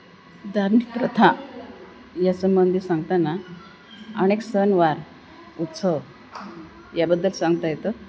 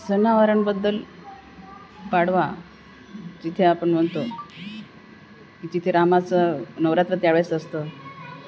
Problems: none marked